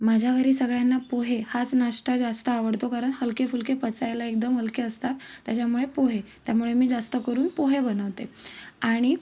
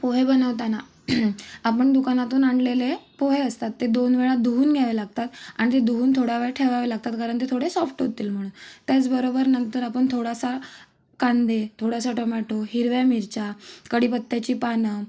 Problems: none marked